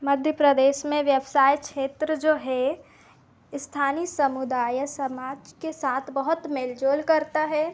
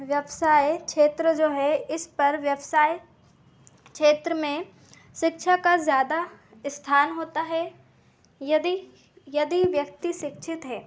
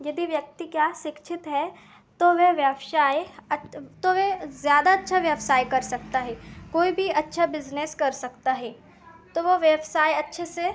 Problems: constant background noise, continuous background conversations